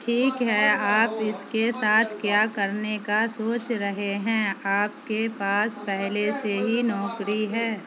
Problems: constant background noise